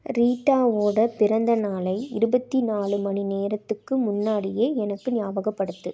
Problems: background sounds at intervals